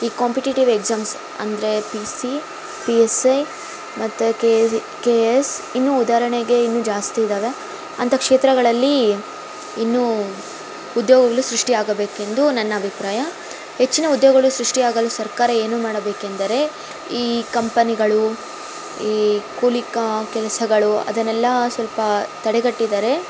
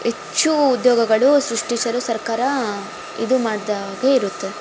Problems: constant background noise